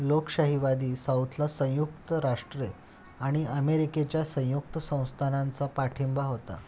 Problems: none marked